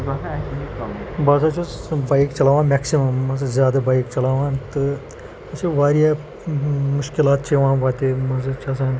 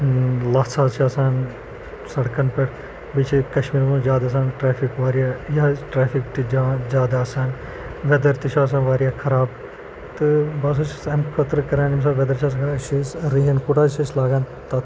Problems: constant background noise